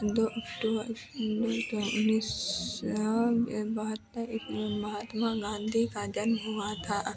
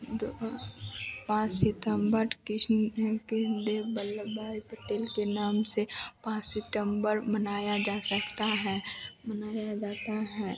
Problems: none marked